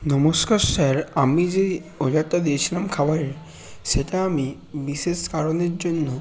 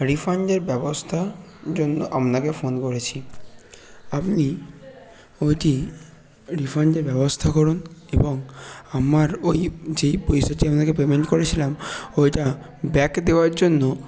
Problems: constant background noise, background conversations at intervals